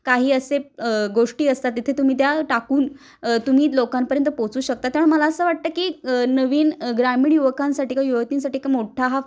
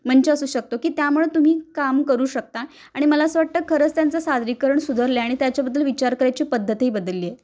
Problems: none marked